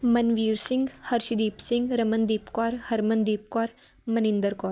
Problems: none marked